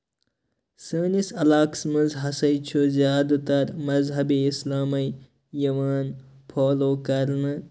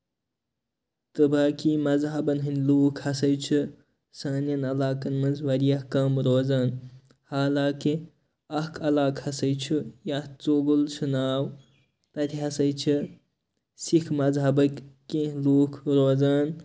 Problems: none marked